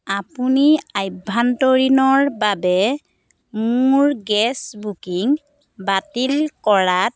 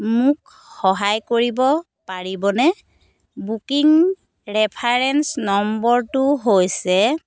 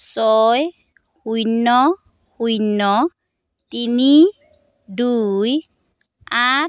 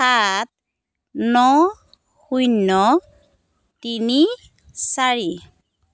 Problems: none marked